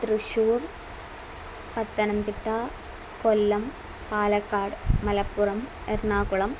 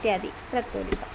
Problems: none marked